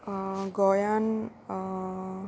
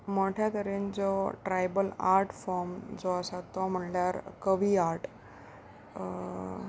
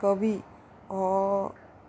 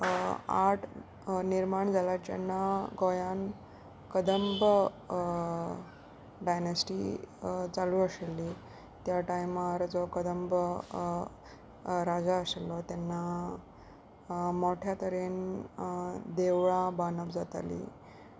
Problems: constant background noise, background conversations at intervals